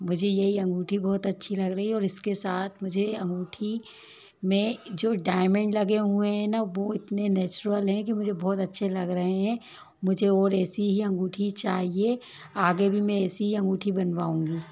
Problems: constant background noise, low volume